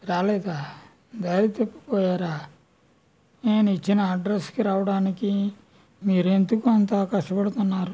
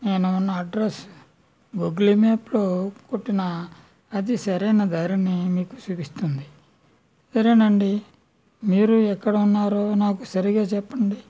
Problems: none marked